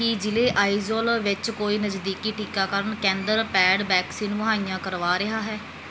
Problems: background sounds at intervals